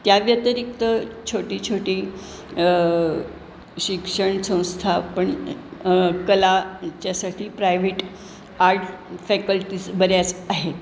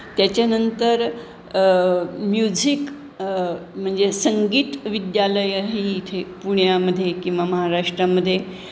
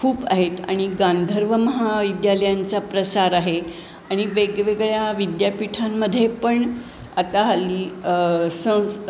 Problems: constant background noise, background conversations at intervals